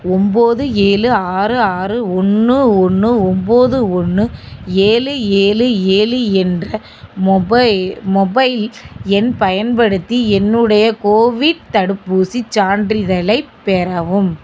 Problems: constant background noise